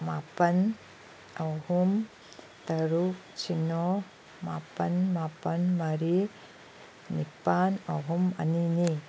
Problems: background sounds at intervals